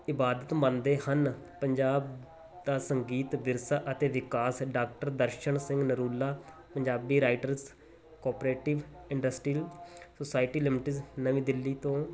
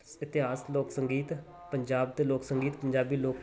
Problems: background sounds at intervals